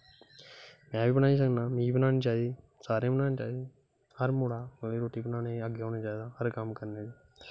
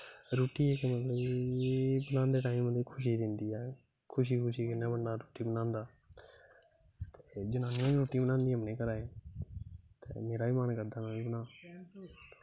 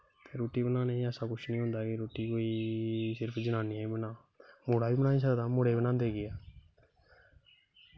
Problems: constant background noise